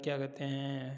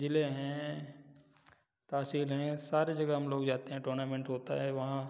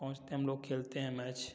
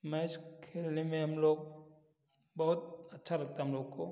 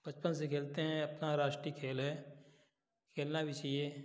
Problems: none marked